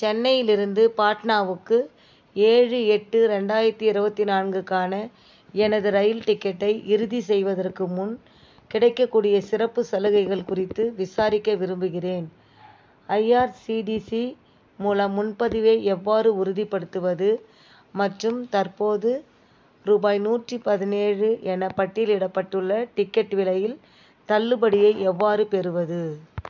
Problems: background sounds at intervals